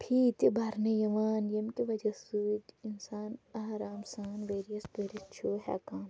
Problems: none marked